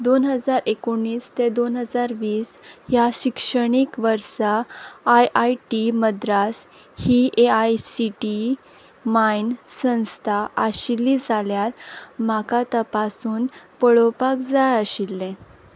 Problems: background sounds at intervals